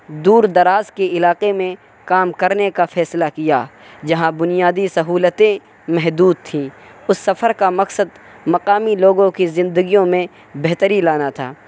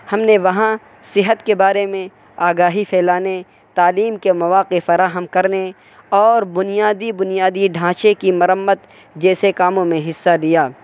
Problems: constant background noise